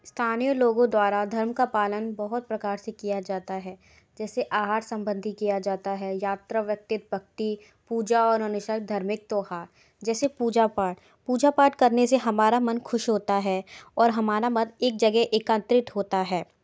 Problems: background sounds at intervals